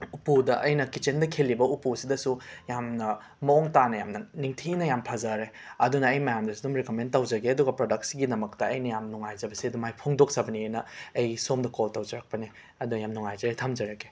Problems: background sounds at intervals